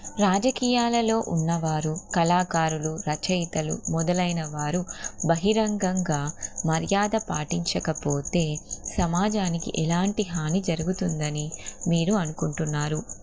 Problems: constant background noise